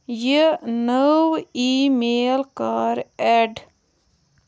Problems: background sounds at intervals